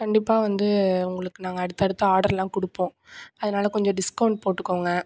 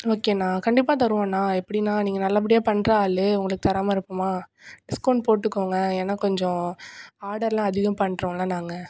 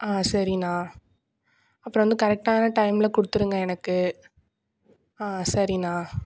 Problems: none marked